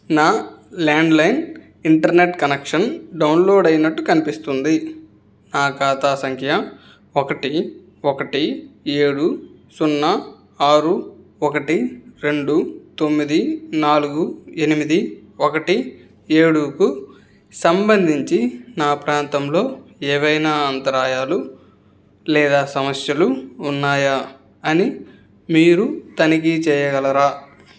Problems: background sounds at intervals